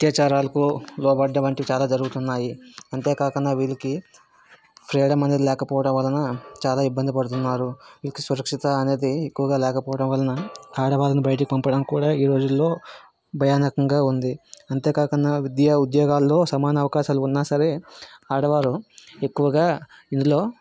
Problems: background sounds at intervals